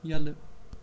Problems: constant background noise